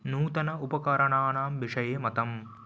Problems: none marked